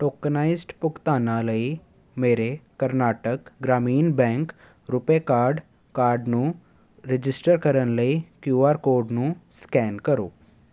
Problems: none marked